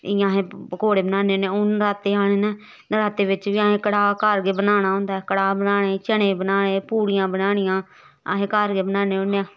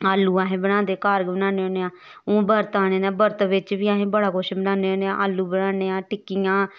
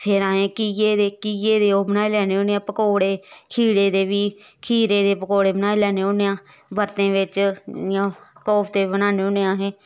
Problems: background sounds at intervals